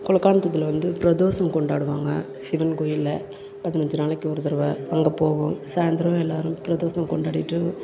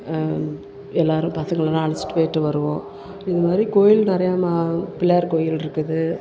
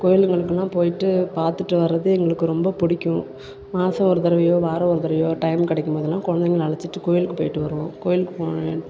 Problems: background sounds at intervals